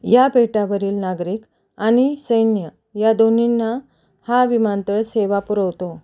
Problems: constant background noise